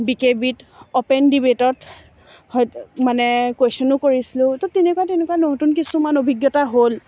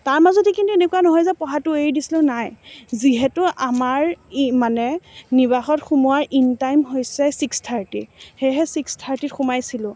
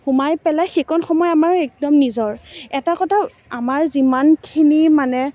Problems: none marked